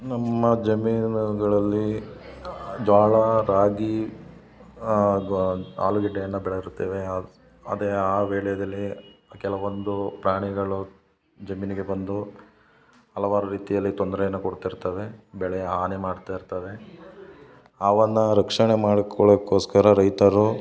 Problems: none marked